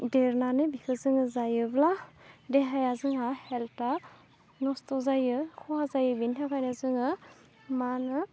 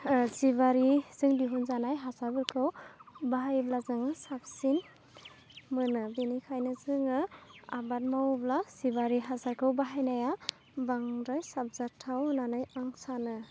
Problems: none marked